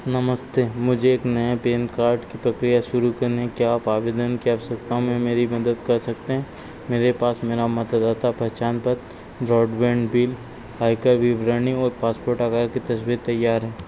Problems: constant background noise